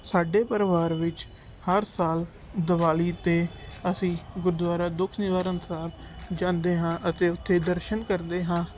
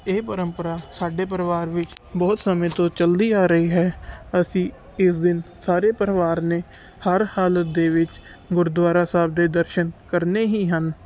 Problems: background sounds at intervals